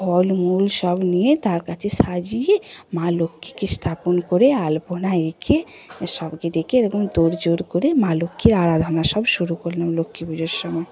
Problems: constant background noise, background conversations at intervals